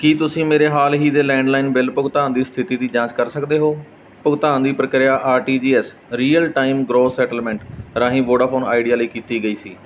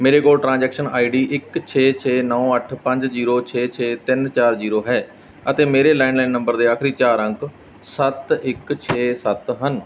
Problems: background sounds at intervals